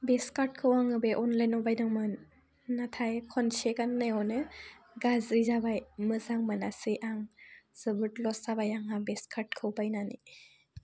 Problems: none marked